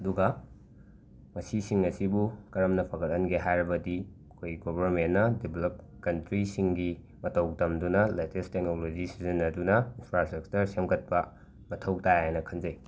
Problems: background sounds at intervals